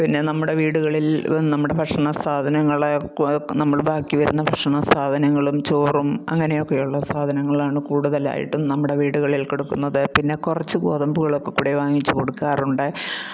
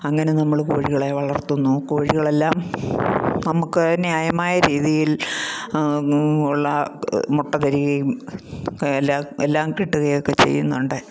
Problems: none marked